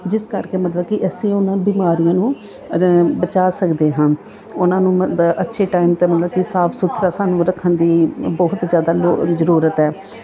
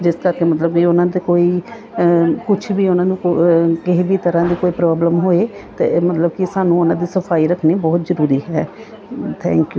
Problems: background sounds at intervals